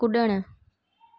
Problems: background sounds at intervals